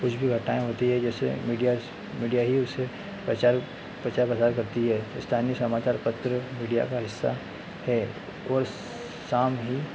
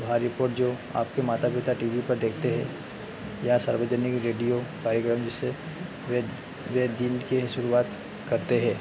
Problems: constant background noise